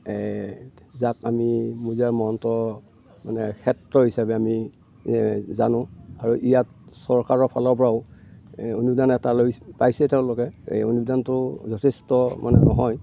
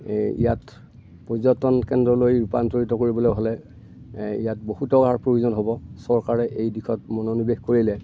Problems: none marked